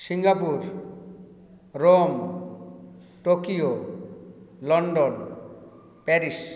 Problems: background sounds at intervals